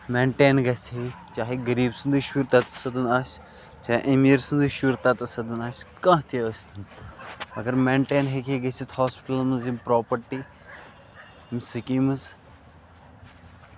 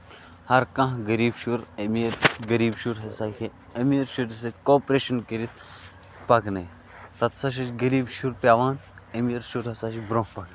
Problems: constant background noise